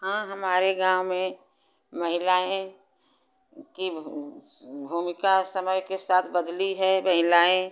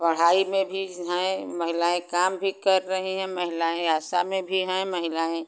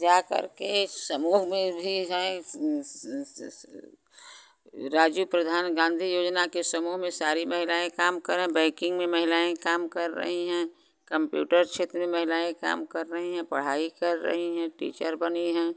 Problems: constant background noise